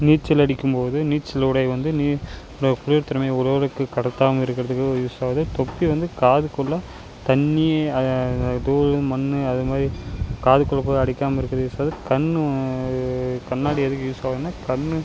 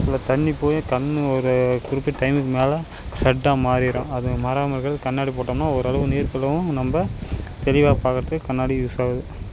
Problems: none marked